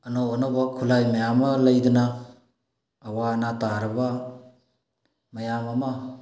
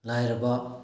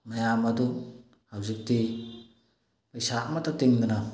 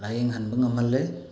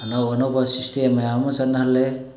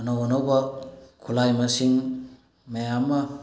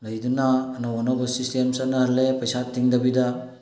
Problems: background sounds at intervals, low volume